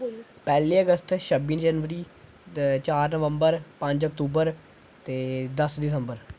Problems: none marked